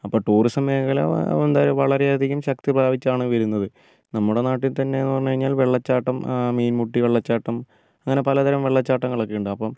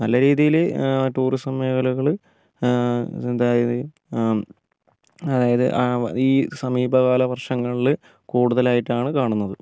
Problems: low volume